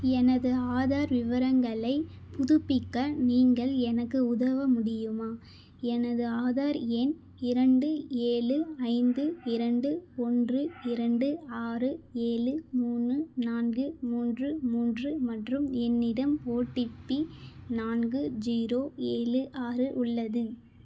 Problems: none marked